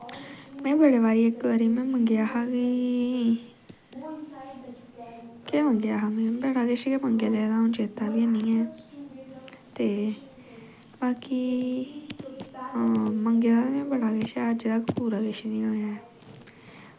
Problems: background sounds at intervals